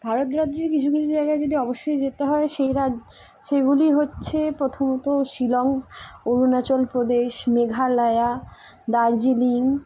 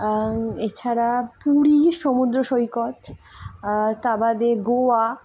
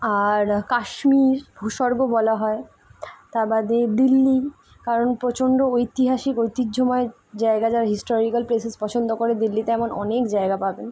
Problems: constant background noise